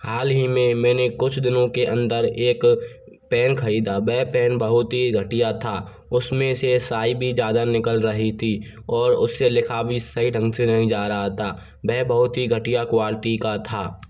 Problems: constant background noise